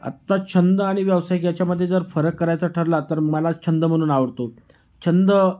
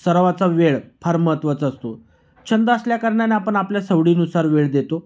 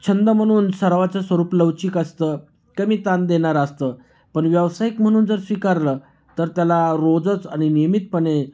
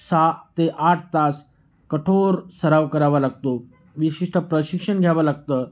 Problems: constant background noise, background conversations at intervals